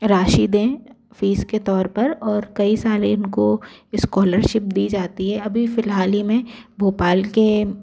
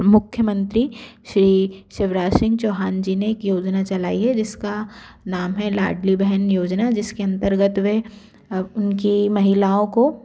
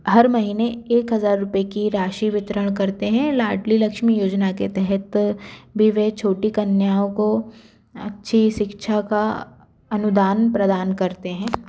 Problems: constant background noise